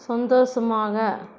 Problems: none marked